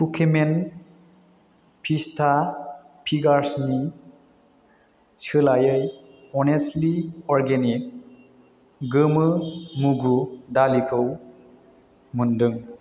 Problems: constant background noise